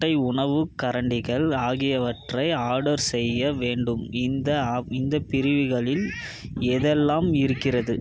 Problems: background conversations at intervals